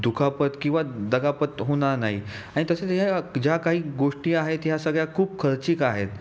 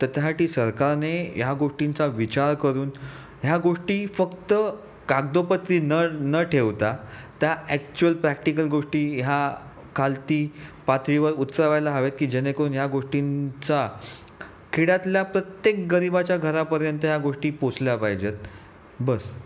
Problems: none marked